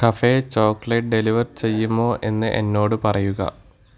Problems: none marked